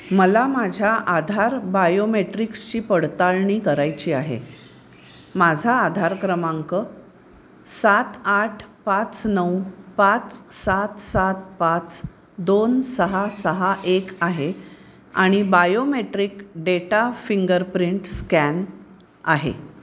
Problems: none marked